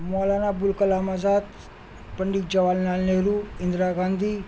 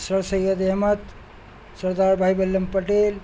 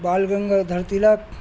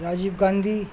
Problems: constant background noise